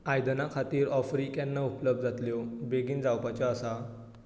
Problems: none marked